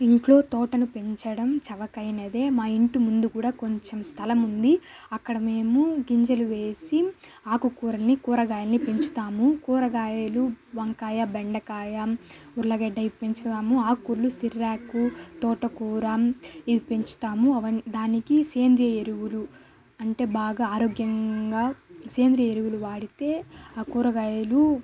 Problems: constant background noise, background conversations at intervals